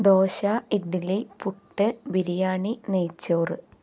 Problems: none marked